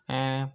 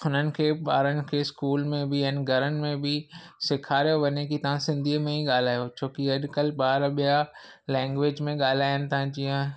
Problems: none marked